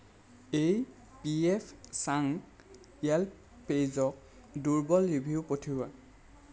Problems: none marked